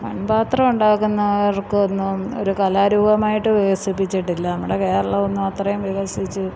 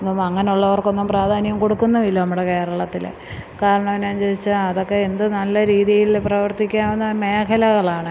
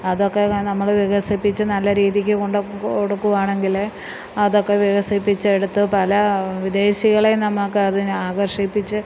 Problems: none marked